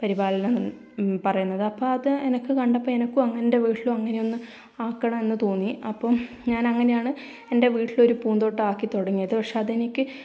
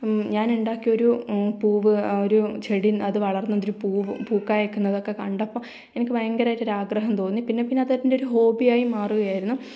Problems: low volume